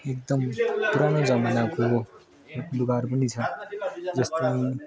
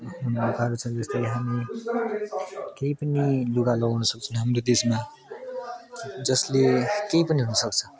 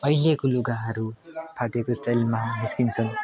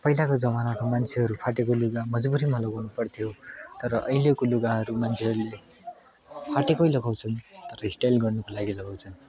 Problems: constant background noise, continuous background conversations